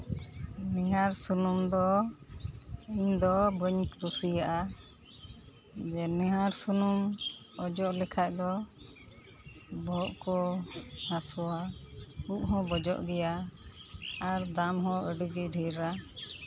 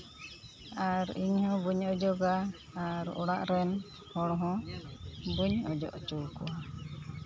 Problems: background sounds at intervals